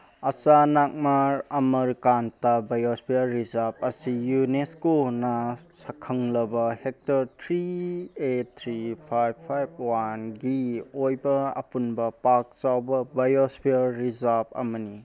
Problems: background conversations at intervals